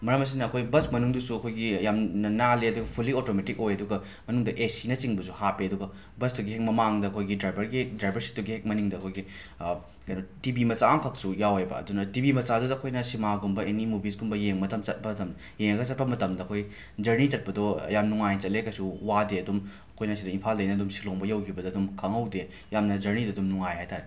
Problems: background sounds at intervals